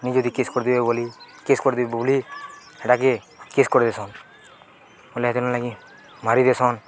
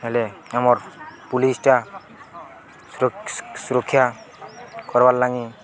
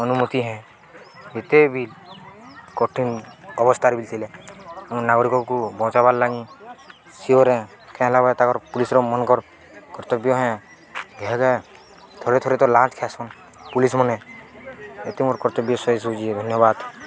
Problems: constant background noise, continuous background conversations